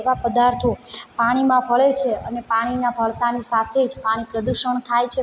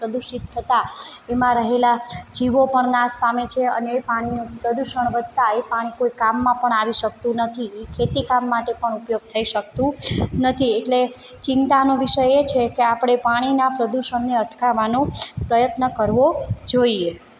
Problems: background sounds at intervals